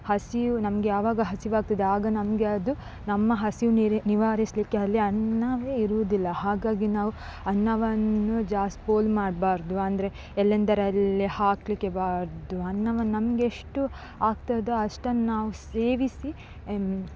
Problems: background sounds at intervals